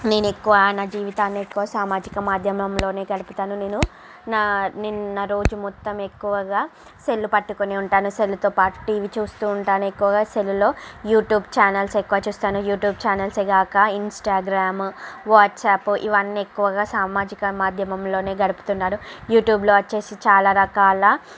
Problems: constant background noise, background conversations at intervals